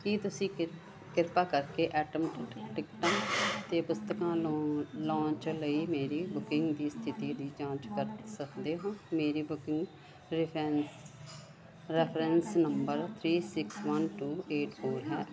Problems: constant background noise, continuous background conversations